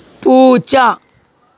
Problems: background sounds at intervals